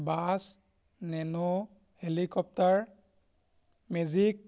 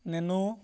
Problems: background sounds at intervals